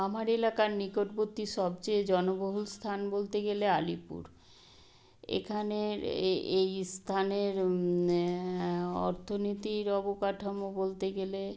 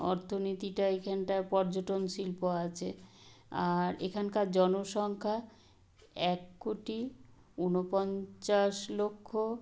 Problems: none marked